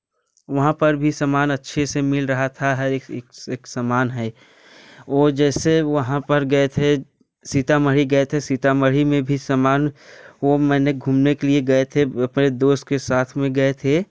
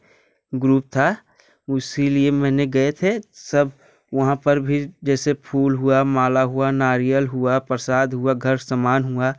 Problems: none marked